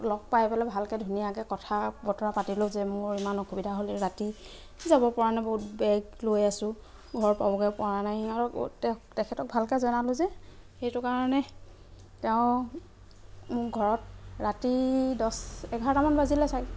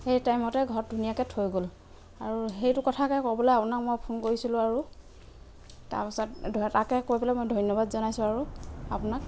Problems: none marked